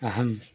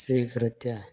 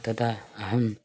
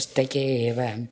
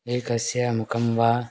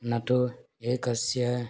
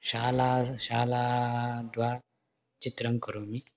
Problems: none marked